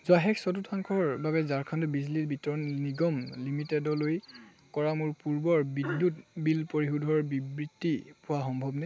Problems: constant background noise